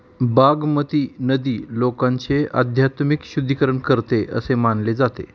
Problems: background sounds at intervals